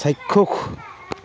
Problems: continuous background conversations